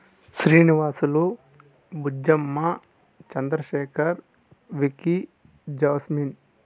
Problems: none marked